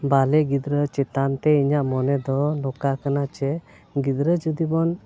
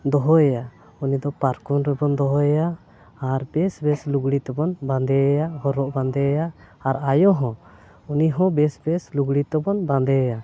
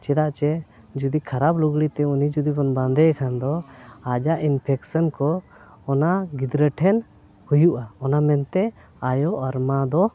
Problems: none marked